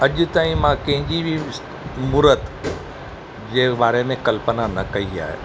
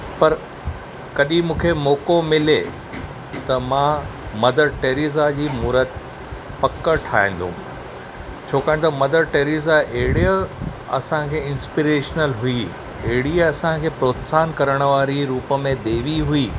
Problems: none marked